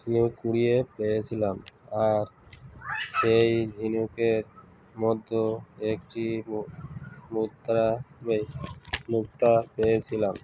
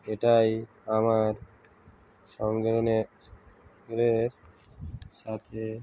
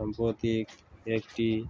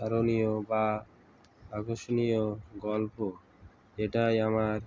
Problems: constant background noise, background conversations at intervals